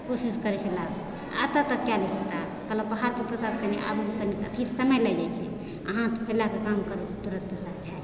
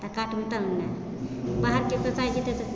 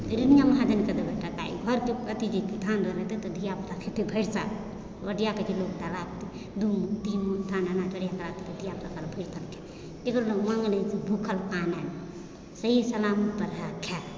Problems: constant background noise, background conversations at intervals